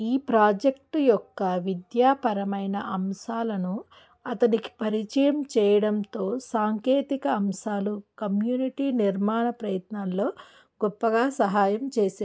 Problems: none marked